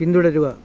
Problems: background sounds at intervals